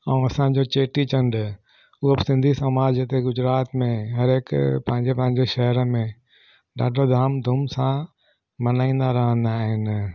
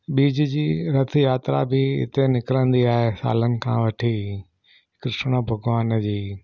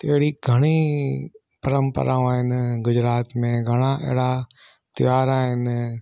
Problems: none marked